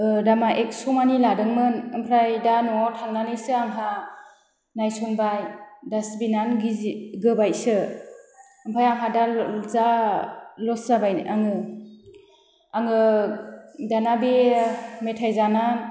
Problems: none marked